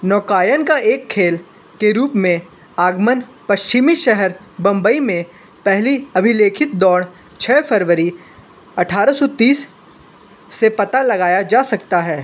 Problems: none marked